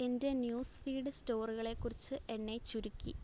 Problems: low volume